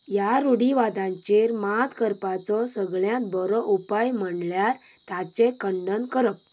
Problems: background sounds at intervals